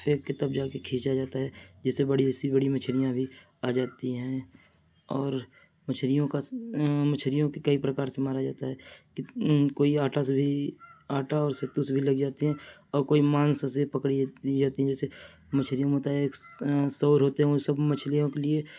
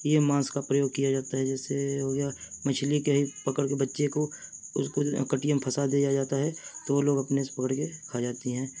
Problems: background sounds at intervals